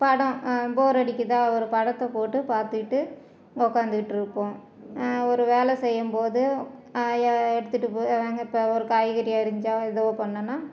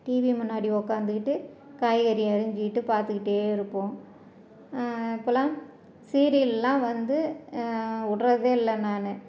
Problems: none marked